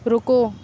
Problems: constant background noise